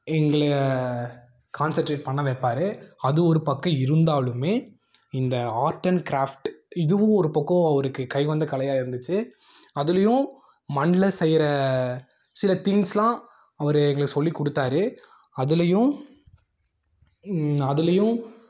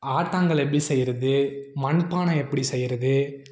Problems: none marked